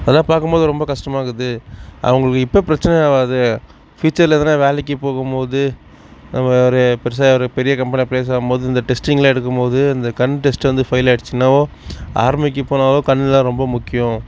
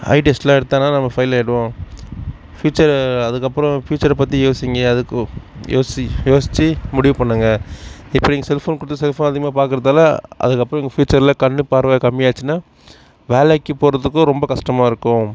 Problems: none marked